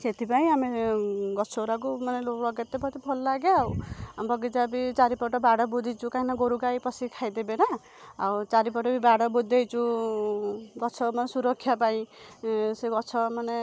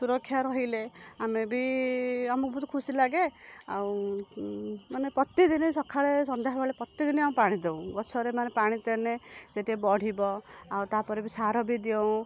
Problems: none marked